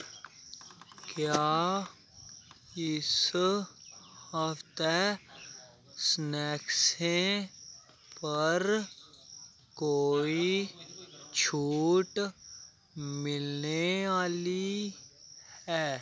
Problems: none marked